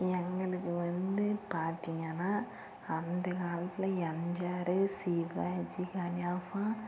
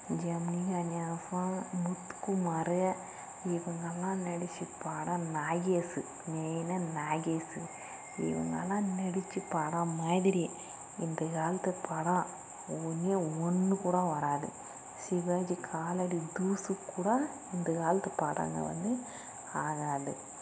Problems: constant background noise, low volume